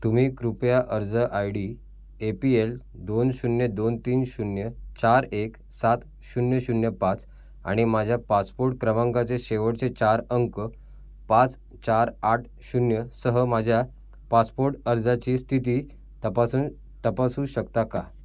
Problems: none marked